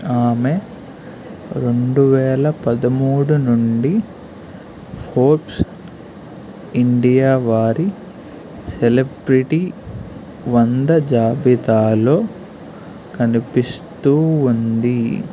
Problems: constant background noise